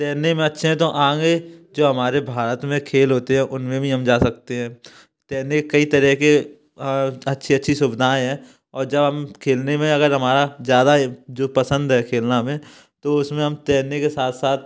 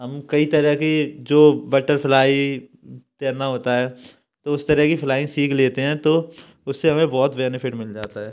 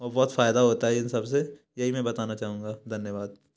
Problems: background sounds at intervals, background conversations at intervals